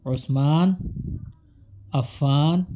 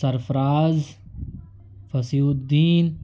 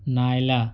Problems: none marked